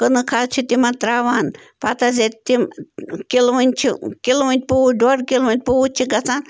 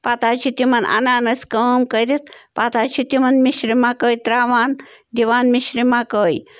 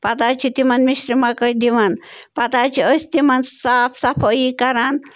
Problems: none marked